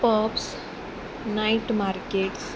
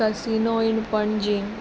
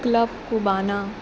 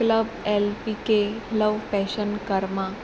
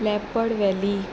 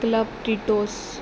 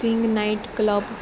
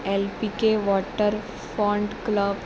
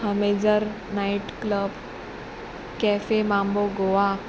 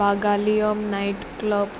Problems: constant background noise